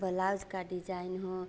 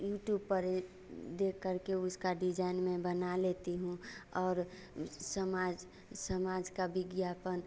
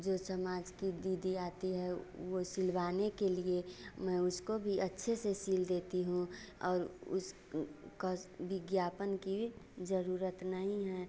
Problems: constant background noise